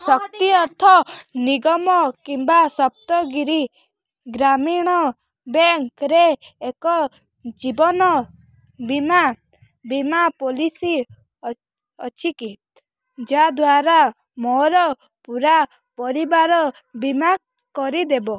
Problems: background sounds at intervals, background conversations at intervals